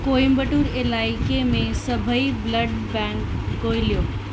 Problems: constant background noise, echo